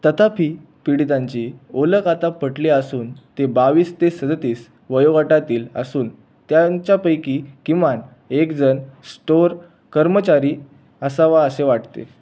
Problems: constant background noise